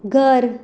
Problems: none marked